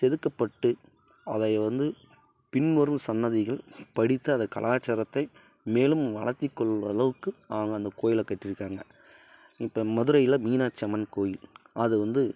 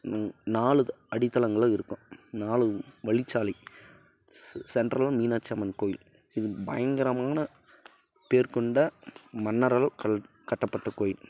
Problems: none marked